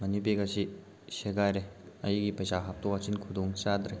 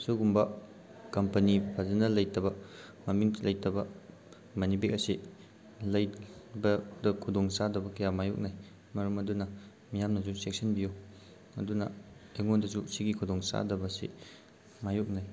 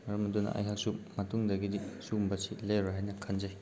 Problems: none marked